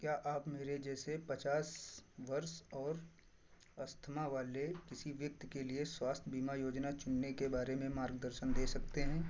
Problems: constant background noise